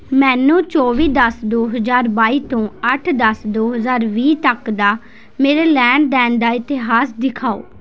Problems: constant background noise